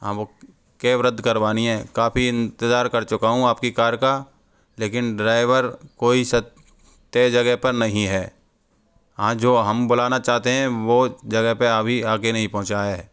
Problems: background sounds at intervals